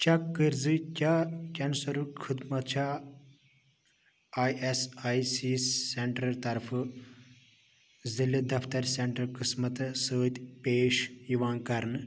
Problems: none marked